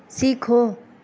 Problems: none marked